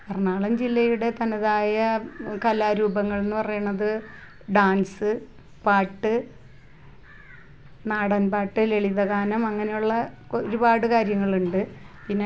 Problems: none marked